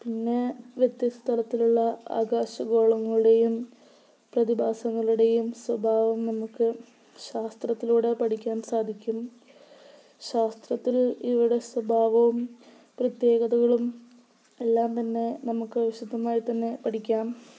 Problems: low volume